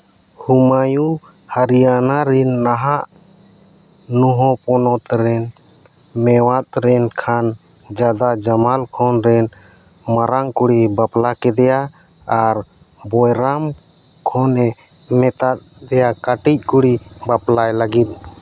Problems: constant background noise